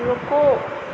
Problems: constant background noise